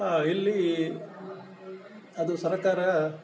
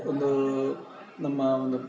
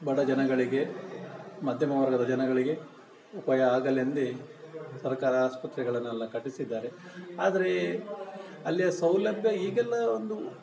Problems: background sounds at intervals